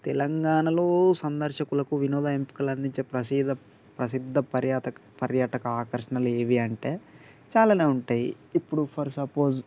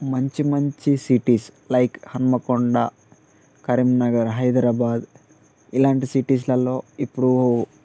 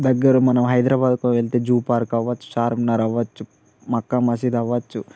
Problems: constant background noise